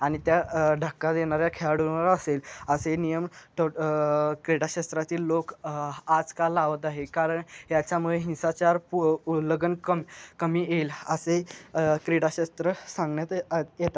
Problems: none marked